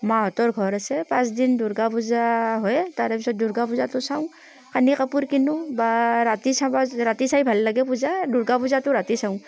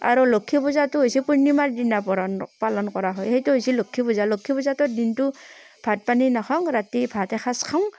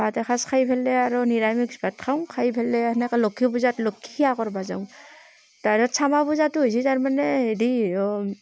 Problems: constant background noise